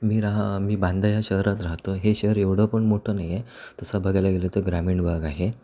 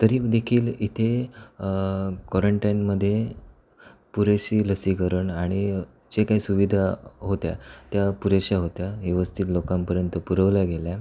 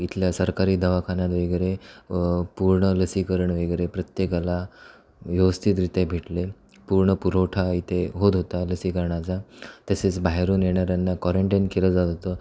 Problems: none marked